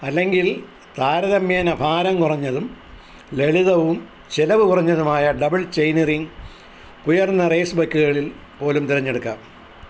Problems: constant background noise